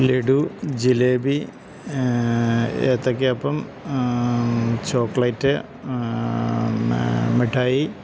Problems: constant background noise